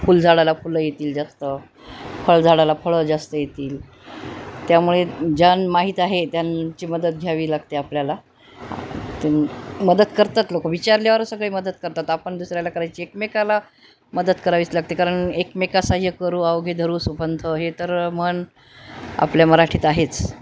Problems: none marked